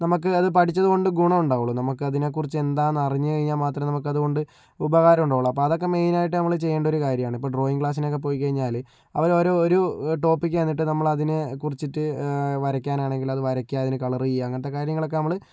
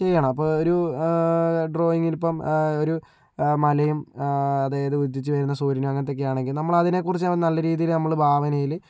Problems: low volume